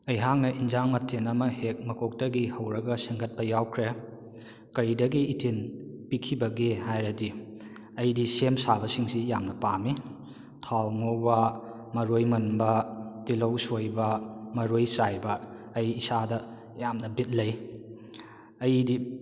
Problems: echo